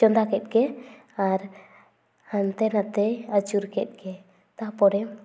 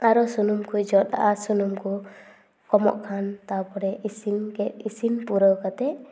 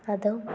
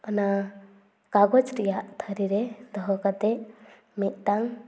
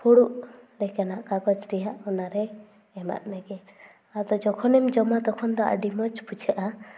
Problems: none marked